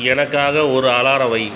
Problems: none marked